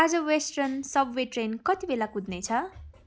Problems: continuous background conversations